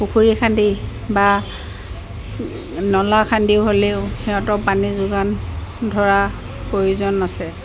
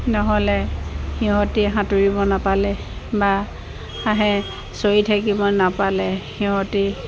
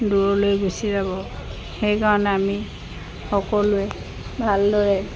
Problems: constant background noise